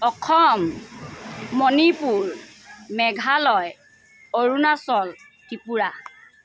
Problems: constant background noise